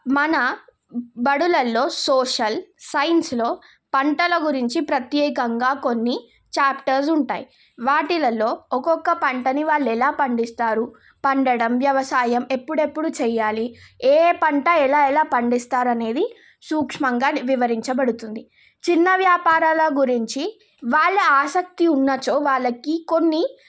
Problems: none marked